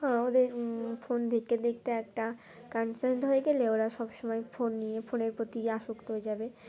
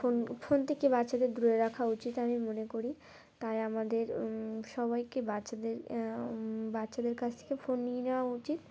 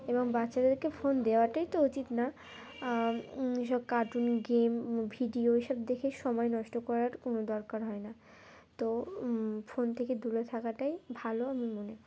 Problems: constant background noise, continuous background conversations